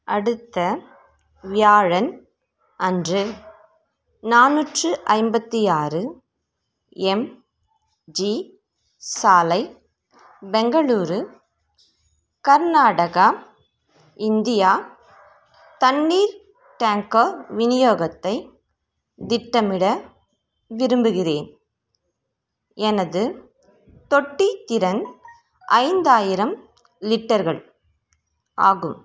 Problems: background sounds at intervals